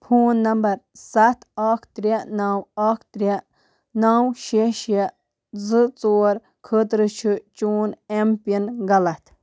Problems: background sounds at intervals